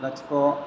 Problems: constant background noise